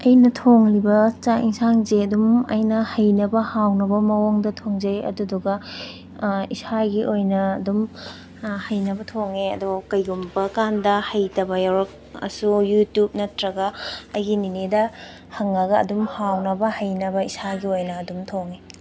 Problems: constant background noise